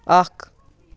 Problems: background sounds at intervals